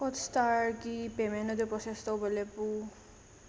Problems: low volume